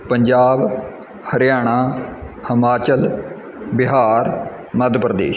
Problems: none marked